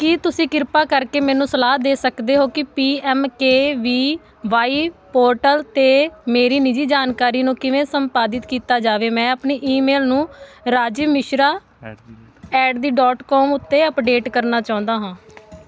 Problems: background conversations at intervals